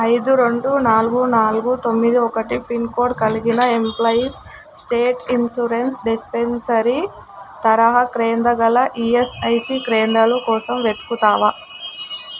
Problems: constant background noise